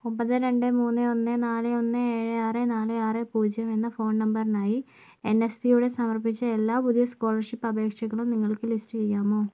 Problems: low volume